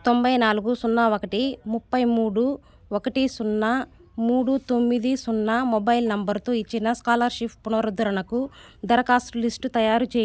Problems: constant background noise, background conversations at intervals